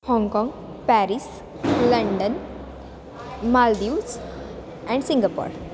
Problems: constant background noise